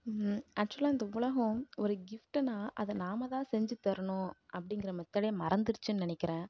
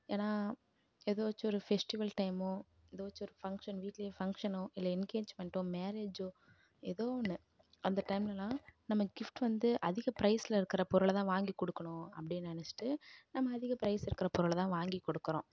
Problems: low volume